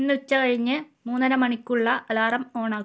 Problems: none marked